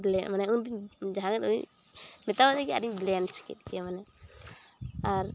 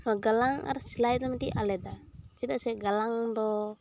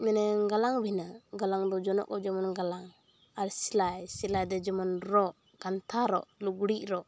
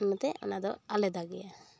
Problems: none marked